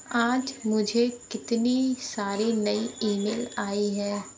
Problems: constant background noise, background conversations at intervals